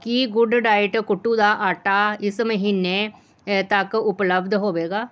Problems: background sounds at intervals